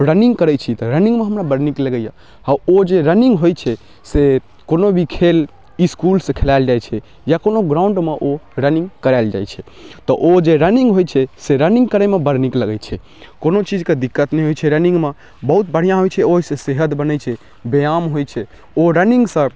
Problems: none marked